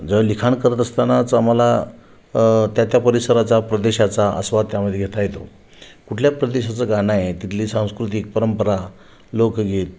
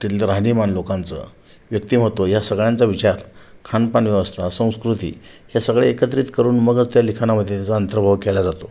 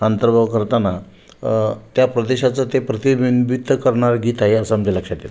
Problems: constant background noise, echo